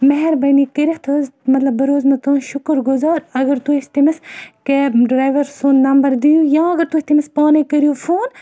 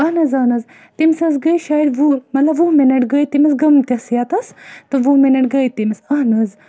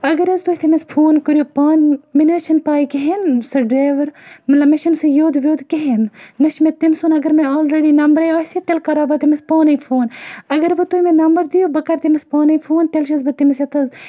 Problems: none marked